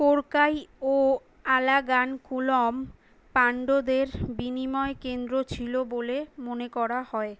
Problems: none marked